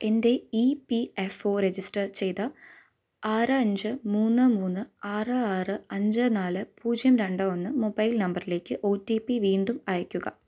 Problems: none marked